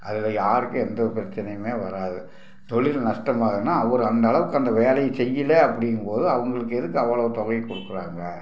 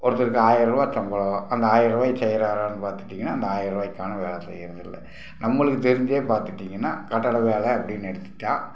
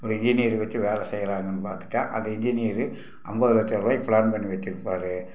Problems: none marked